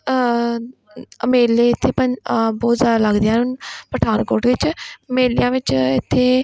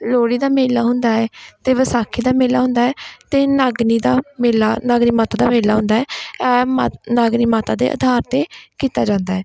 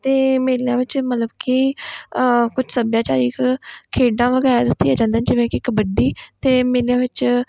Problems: none marked